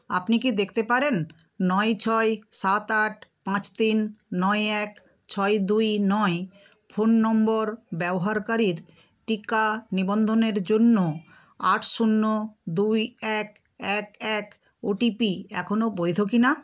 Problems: background sounds at intervals